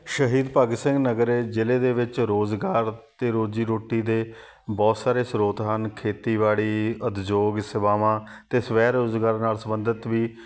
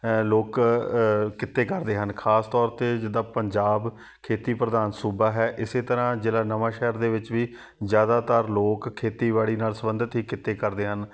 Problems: none marked